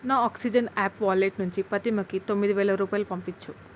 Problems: constant background noise